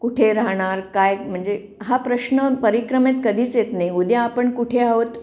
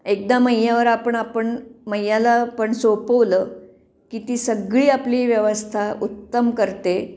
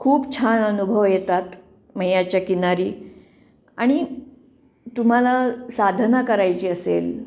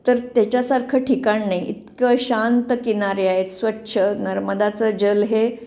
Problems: background sounds at intervals